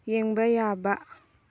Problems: low volume